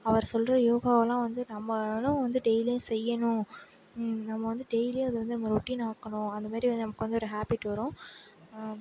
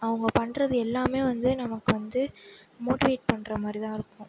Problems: background sounds at intervals, low volume